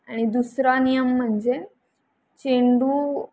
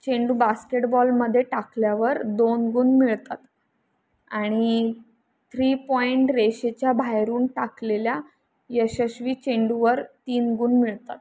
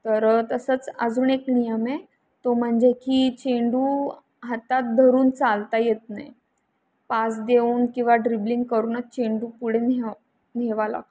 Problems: none marked